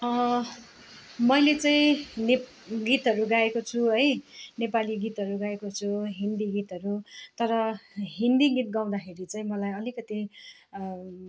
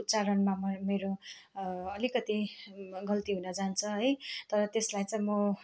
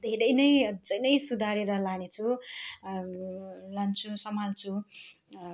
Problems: constant background noise, continuous background conversations